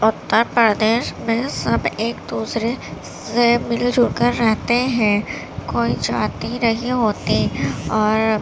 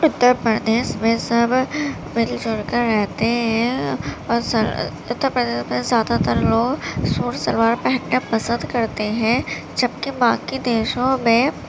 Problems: constant background noise